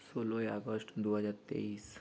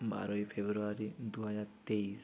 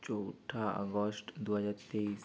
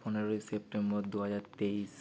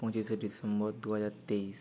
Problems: none marked